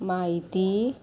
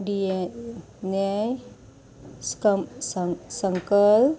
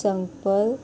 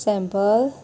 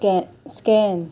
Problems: constant background noise